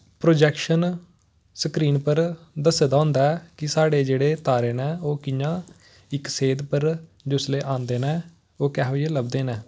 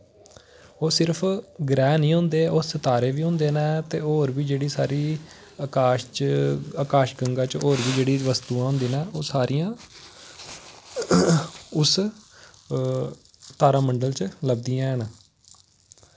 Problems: constant background noise